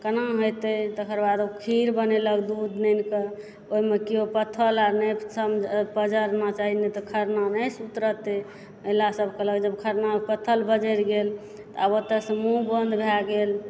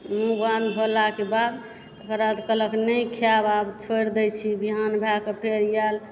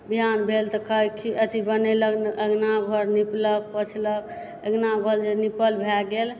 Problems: background sounds at intervals